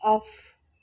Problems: constant background noise